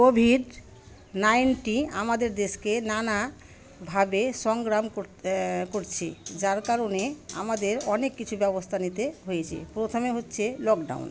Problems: constant background noise, continuous background conversations